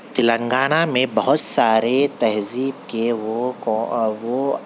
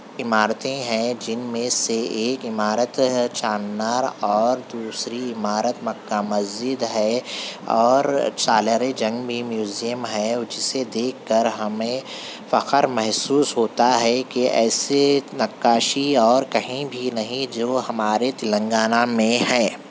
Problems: constant background noise, background conversations at intervals